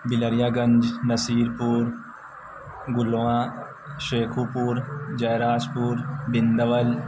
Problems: constant background noise